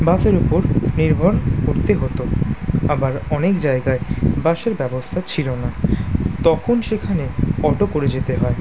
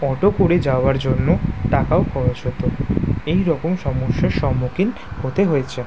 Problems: constant background noise